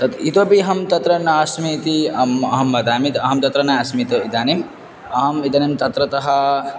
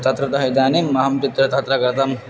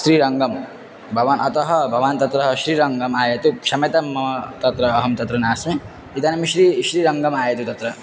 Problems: constant background noise